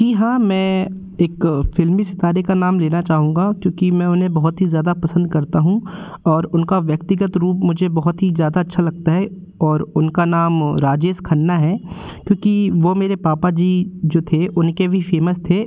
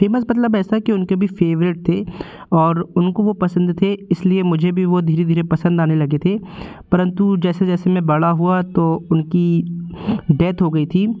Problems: constant background noise